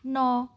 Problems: none marked